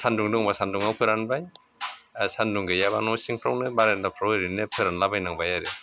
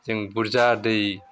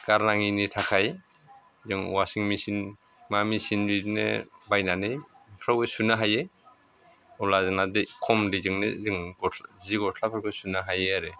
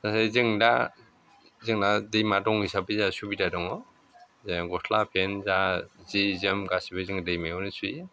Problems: constant background noise